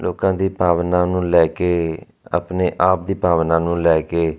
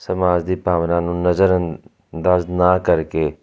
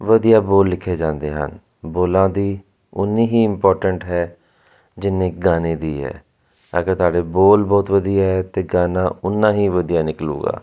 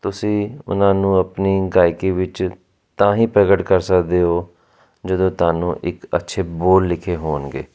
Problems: constant background noise